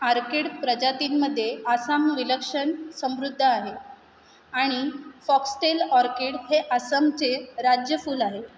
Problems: none marked